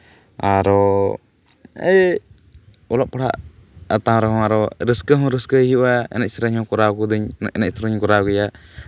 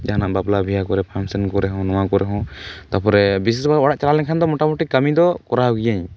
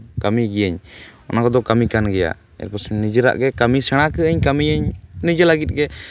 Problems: constant background noise